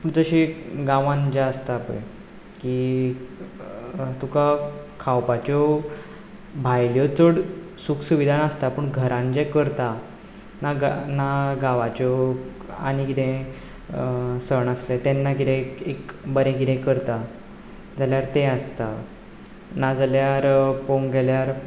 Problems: none marked